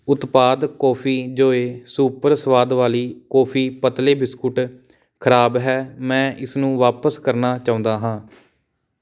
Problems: background sounds at intervals